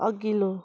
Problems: background sounds at intervals